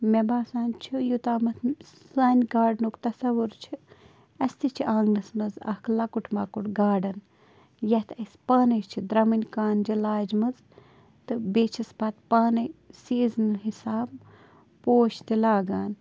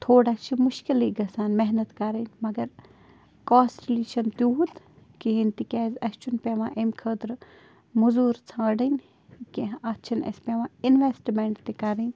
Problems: constant background noise